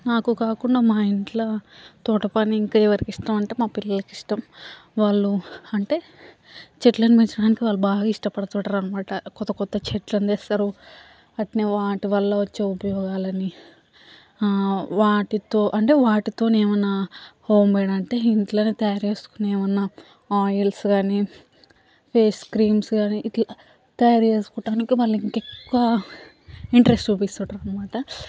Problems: background sounds at intervals, background conversations at intervals